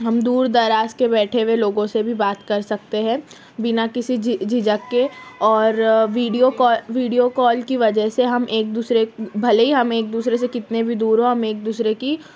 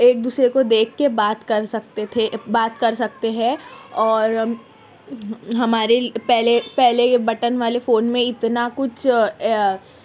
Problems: constant background noise, background conversations at intervals